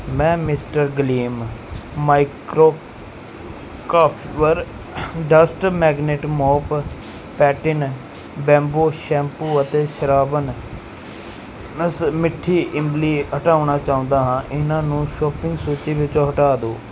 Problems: background sounds at intervals